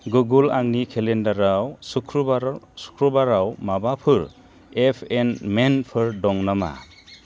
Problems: low volume